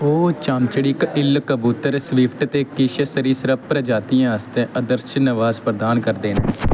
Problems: constant background noise